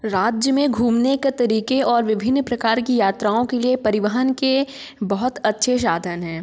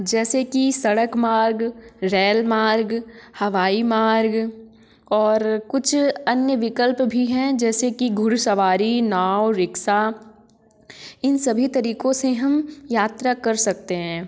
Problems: none marked